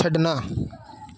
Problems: background sounds at intervals